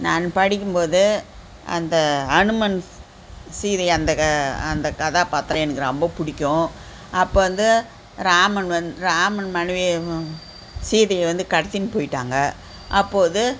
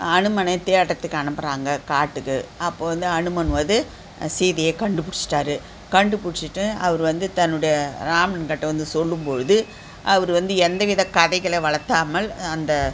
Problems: constant background noise